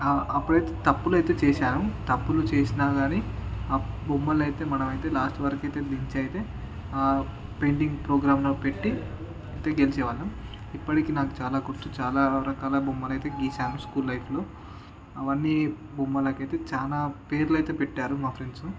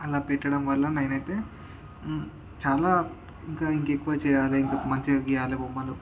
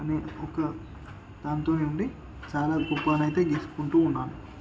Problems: constant background noise, background conversations at intervals